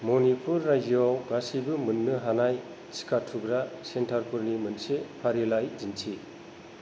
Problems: constant background noise